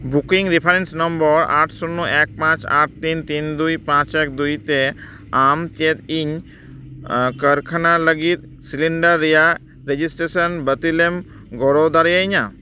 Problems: background sounds at intervals